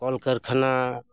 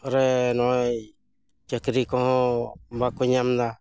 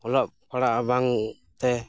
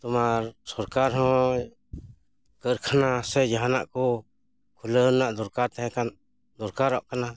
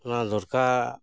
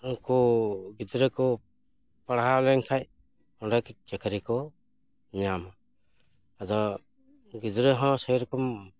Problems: none marked